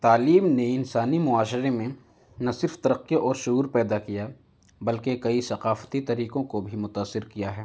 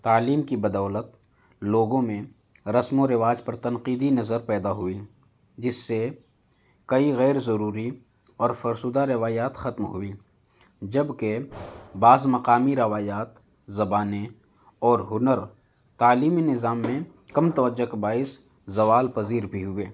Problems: none marked